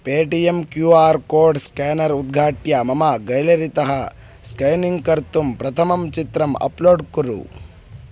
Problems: none marked